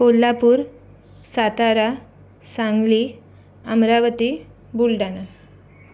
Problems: none marked